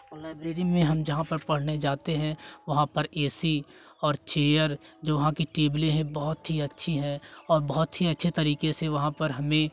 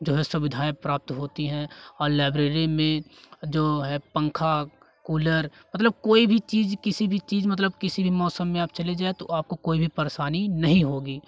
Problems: none marked